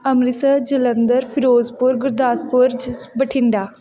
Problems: continuous background conversations